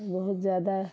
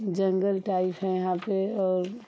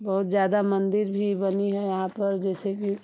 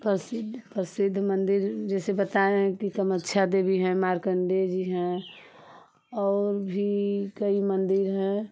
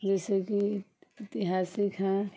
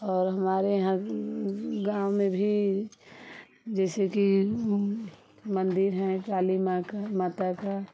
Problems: constant background noise